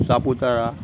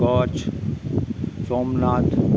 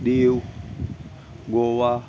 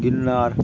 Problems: none marked